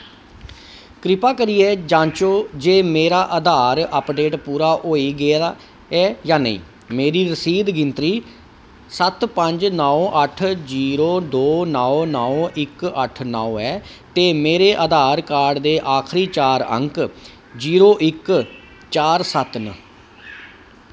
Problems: constant background noise